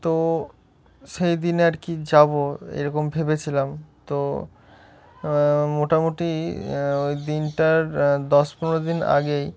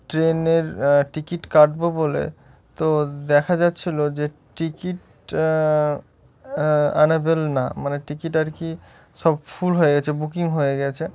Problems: none marked